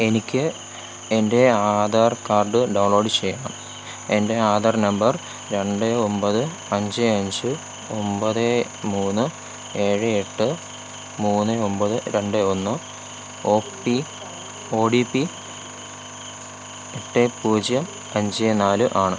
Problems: constant background noise